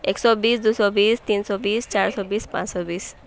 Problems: none marked